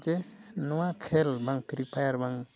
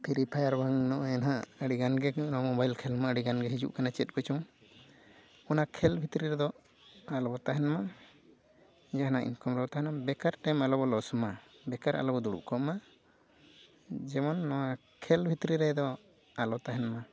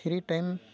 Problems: background sounds at intervals, background conversations at intervals, low volume